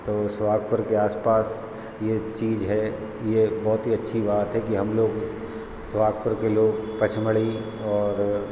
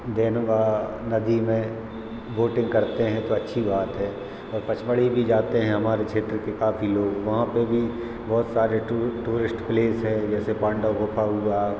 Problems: none marked